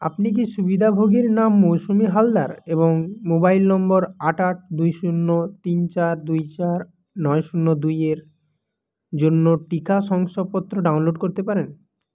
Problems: none marked